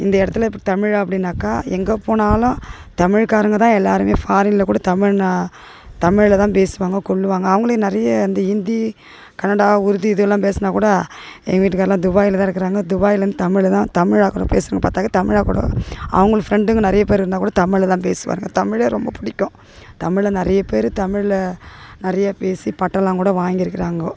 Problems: background sounds at intervals